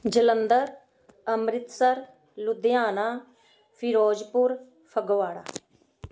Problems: background sounds at intervals, background conversations at intervals